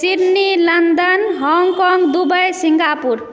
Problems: background sounds at intervals, background conversations at intervals